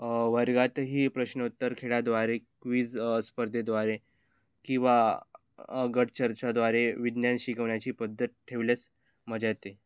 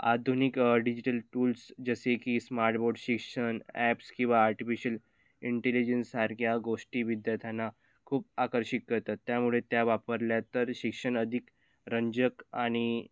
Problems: none marked